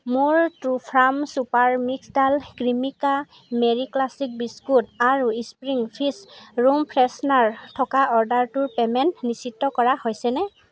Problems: constant background noise, background conversations at intervals